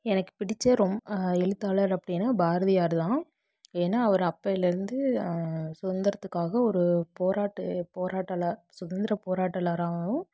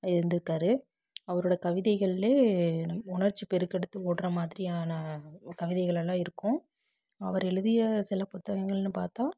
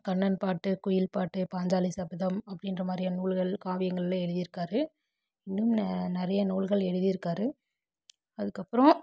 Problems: background sounds at intervals